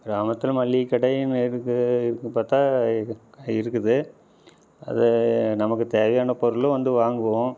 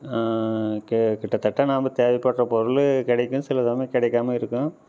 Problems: none marked